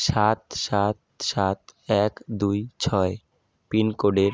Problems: none marked